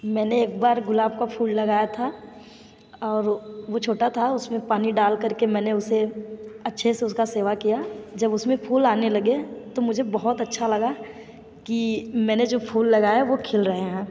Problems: none marked